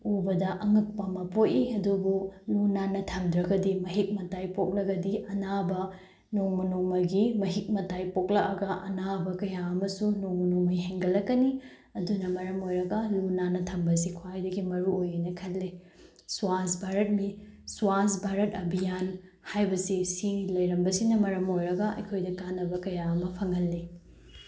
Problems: none marked